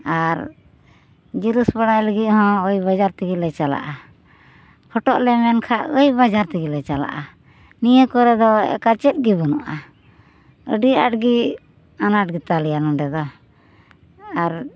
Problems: none marked